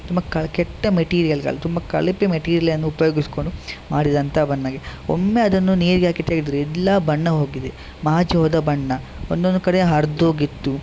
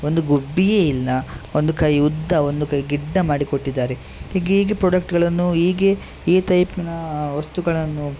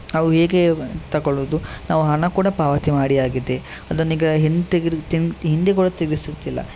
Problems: constant background noise